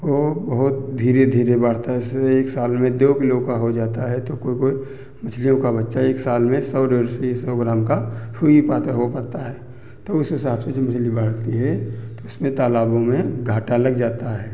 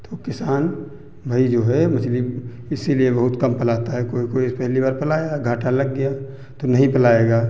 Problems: none marked